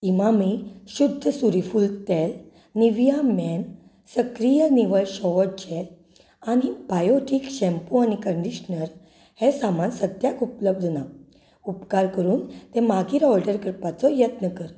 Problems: none marked